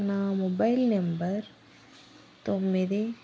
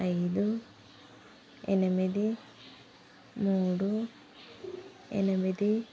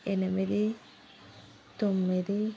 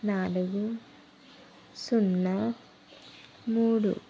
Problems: constant background noise